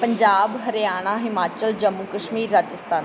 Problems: background sounds at intervals